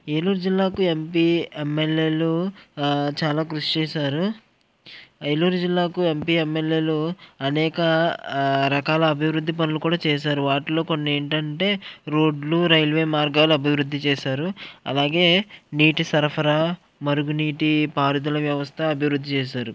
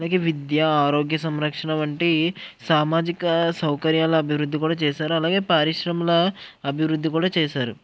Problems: none marked